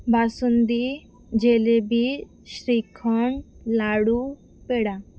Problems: background sounds at intervals